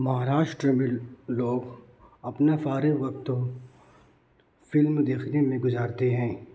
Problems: constant background noise